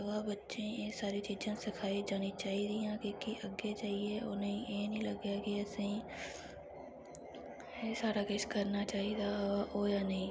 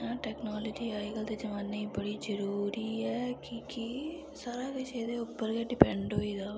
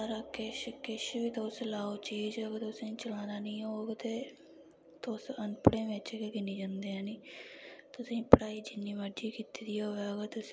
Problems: low volume